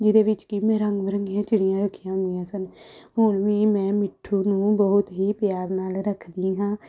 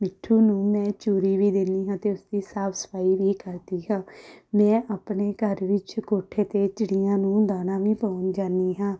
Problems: background sounds at intervals